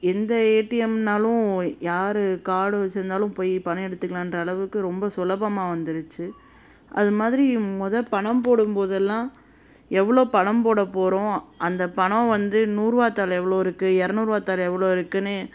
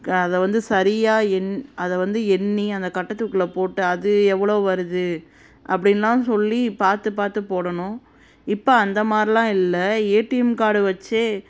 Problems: constant background noise